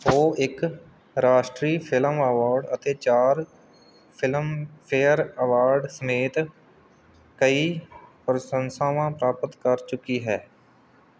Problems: background sounds at intervals